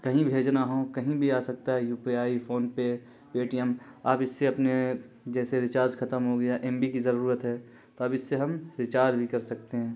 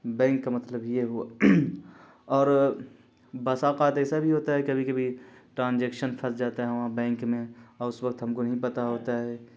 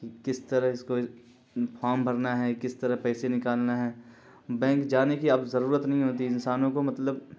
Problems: constant background noise